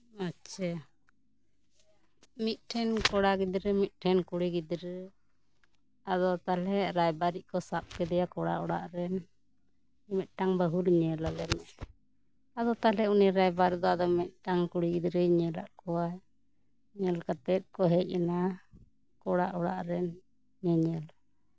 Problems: background conversations at intervals